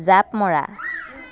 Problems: background sounds at intervals, background conversations at intervals